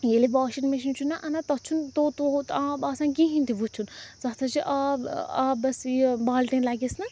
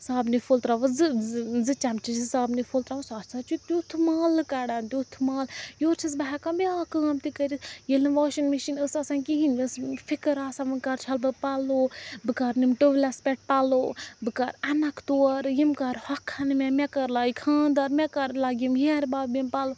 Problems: background sounds at intervals, background conversations at intervals